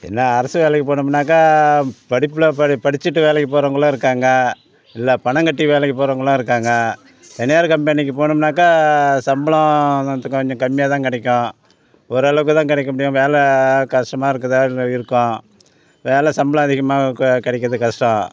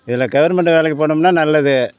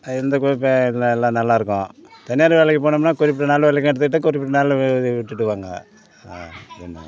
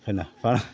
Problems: constant background noise, continuous background conversations